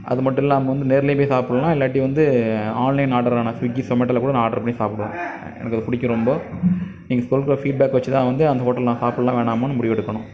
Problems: none marked